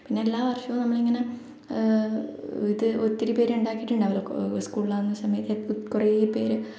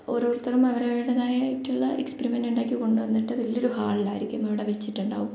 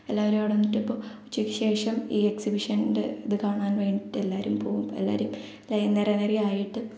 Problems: echo, low volume